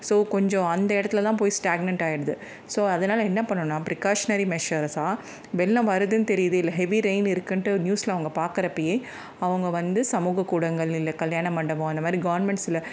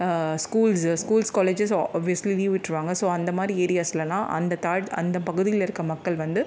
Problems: none marked